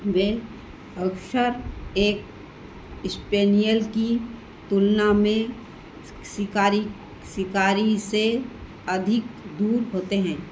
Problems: constant background noise